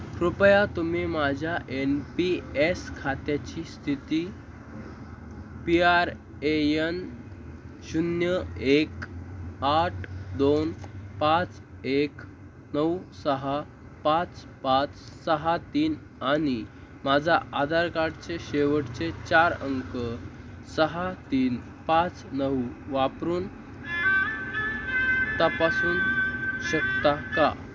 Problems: constant background noise